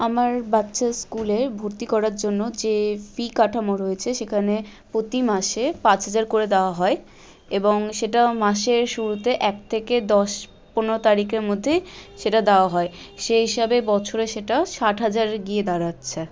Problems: constant background noise, background conversations at intervals